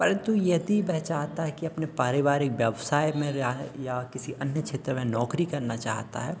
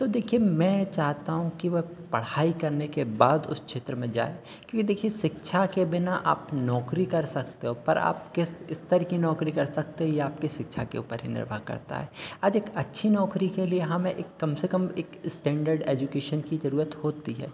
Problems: constant background noise, continuous background conversations